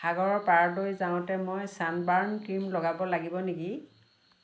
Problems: none marked